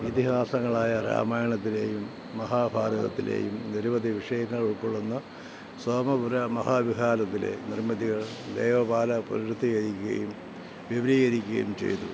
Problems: constant background noise